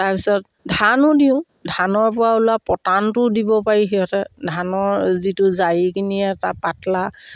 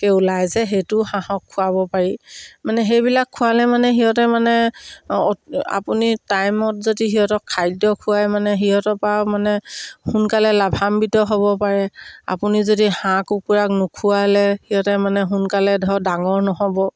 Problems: none marked